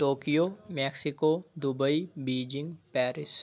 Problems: none marked